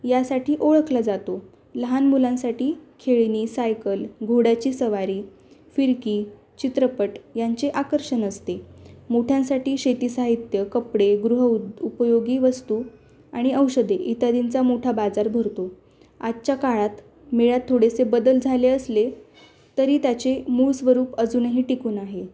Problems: background sounds at intervals